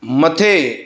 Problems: none marked